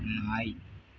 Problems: background sounds at intervals